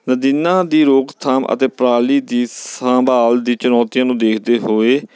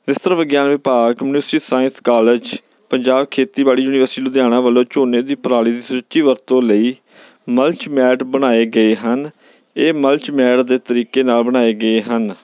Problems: background sounds at intervals